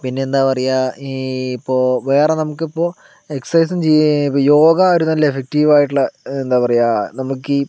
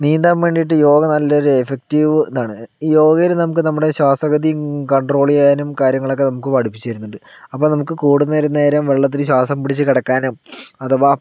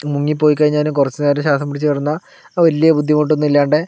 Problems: none marked